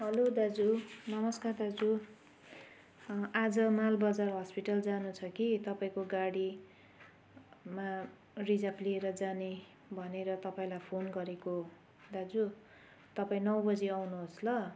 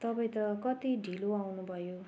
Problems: background sounds at intervals